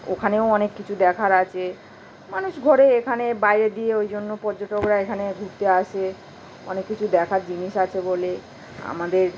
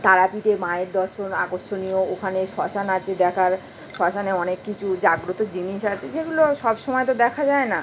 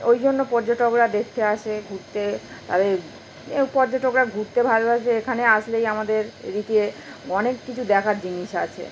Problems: constant background noise